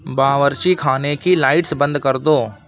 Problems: constant background noise